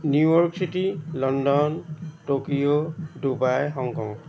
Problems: none marked